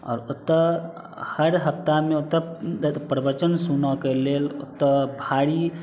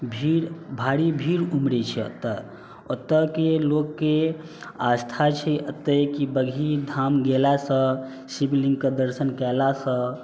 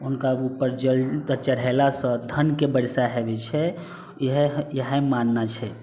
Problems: none marked